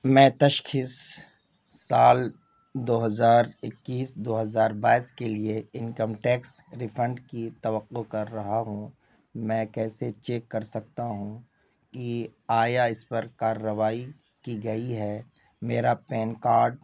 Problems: none marked